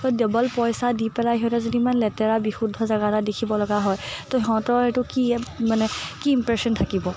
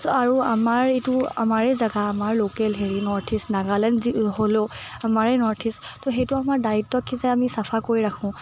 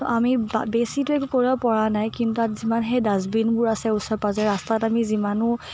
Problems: background sounds at intervals